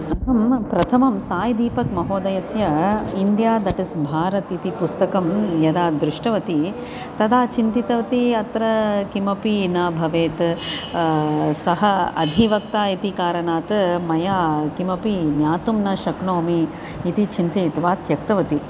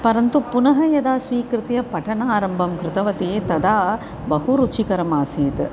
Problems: constant background noise